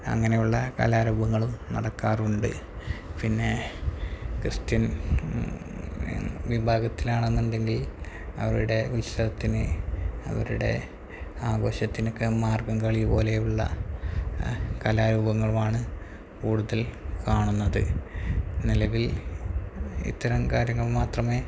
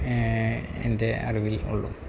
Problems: constant background noise, low volume